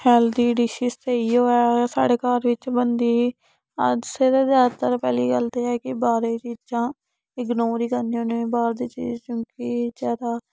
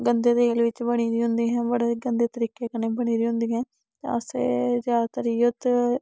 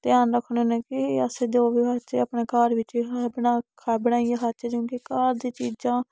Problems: none marked